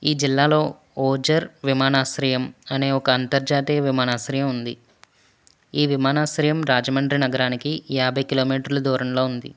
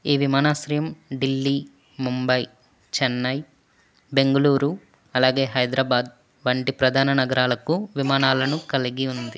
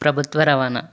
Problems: none marked